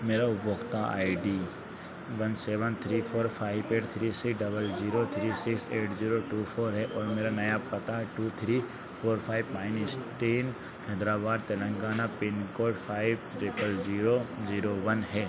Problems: constant background noise